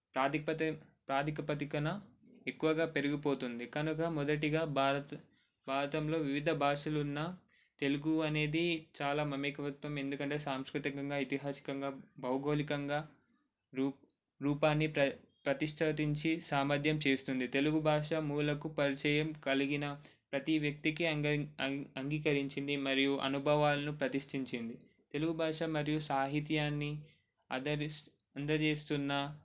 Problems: none marked